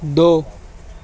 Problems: constant background noise